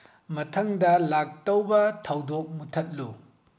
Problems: low volume